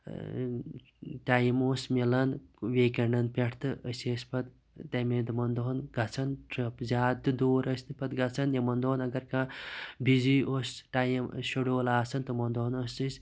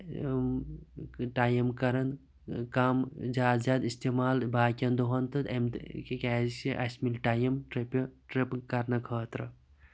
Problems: constant background noise